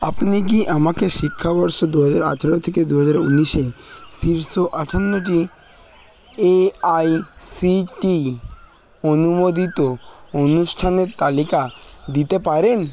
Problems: none marked